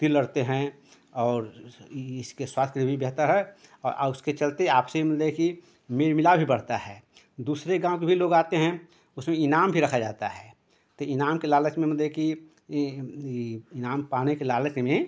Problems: background sounds at intervals